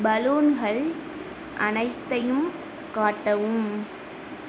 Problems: constant background noise